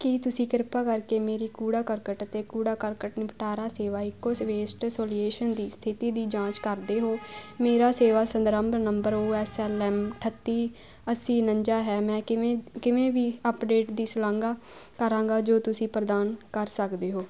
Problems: constant background noise